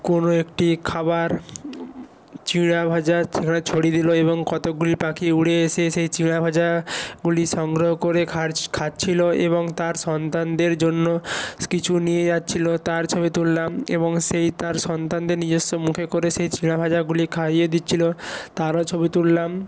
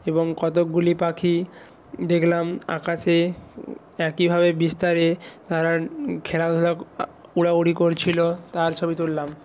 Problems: background sounds at intervals